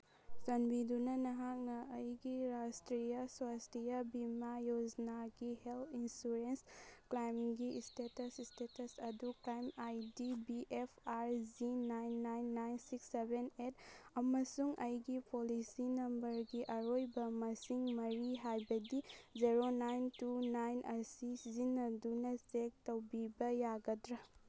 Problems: none marked